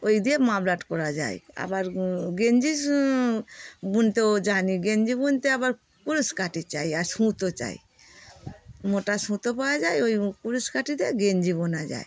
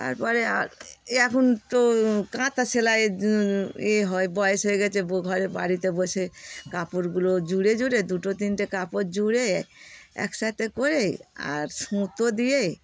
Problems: none marked